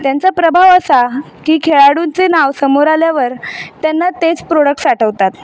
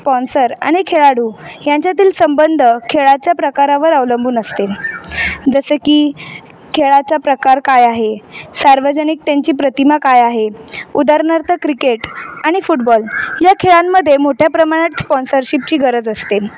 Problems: constant background noise